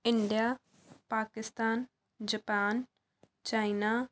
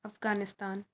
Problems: background sounds at intervals